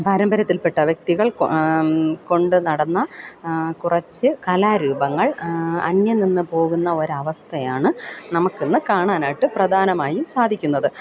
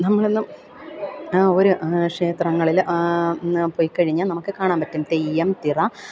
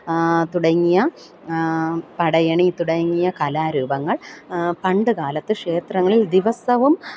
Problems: none marked